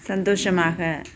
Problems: background sounds at intervals